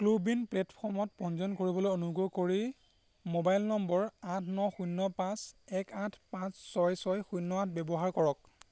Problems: constant background noise